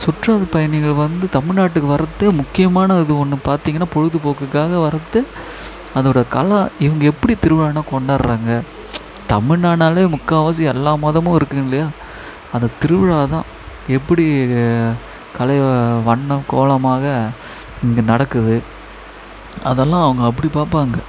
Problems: constant background noise